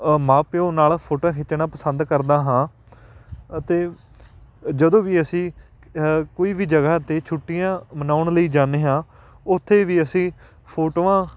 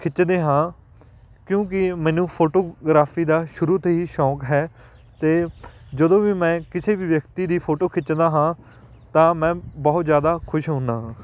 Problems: background sounds at intervals